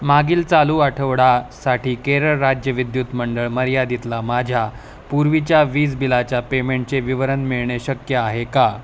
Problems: none marked